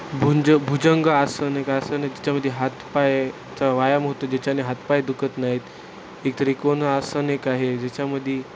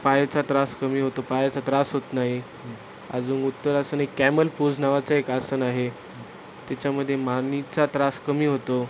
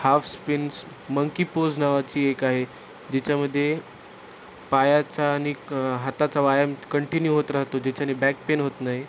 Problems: constant background noise